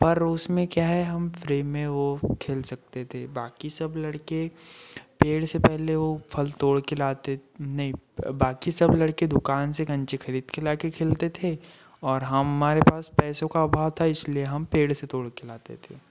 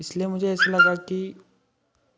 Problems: background sounds at intervals